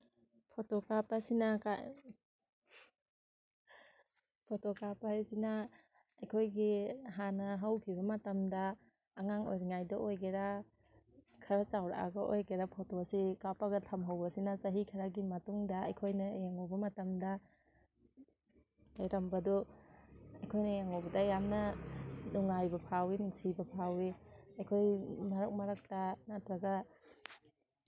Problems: background sounds at intervals